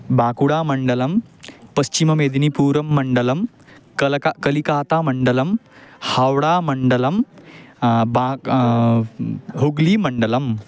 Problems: background sounds at intervals